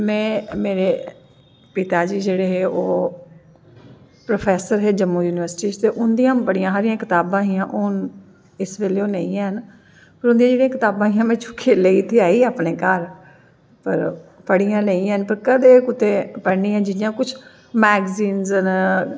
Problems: echo